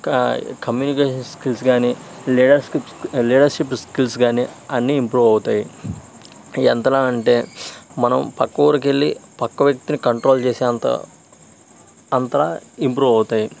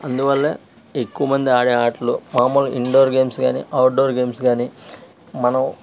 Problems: constant background noise